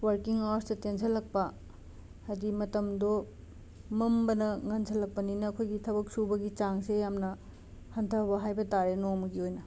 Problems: constant background noise